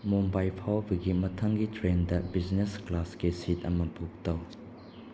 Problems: none marked